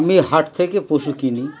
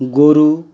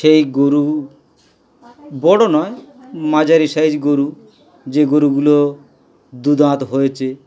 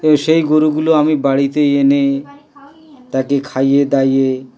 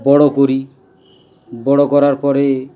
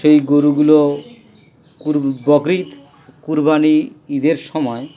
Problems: constant background noise, background conversations at intervals